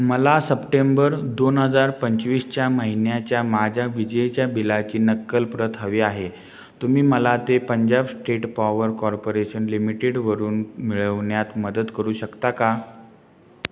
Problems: none marked